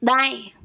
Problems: none marked